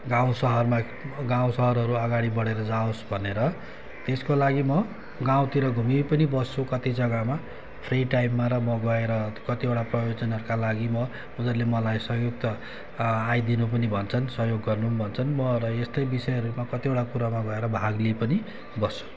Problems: constant background noise